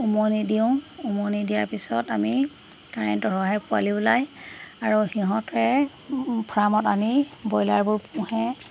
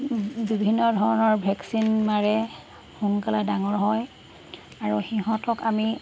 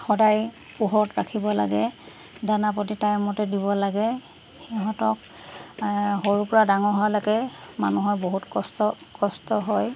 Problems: constant background noise